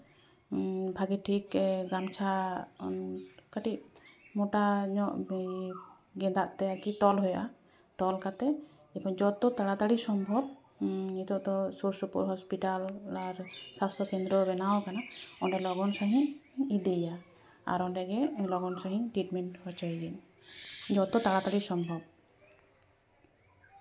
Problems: background conversations at intervals